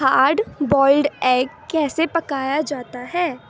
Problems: background sounds at intervals, background conversations at intervals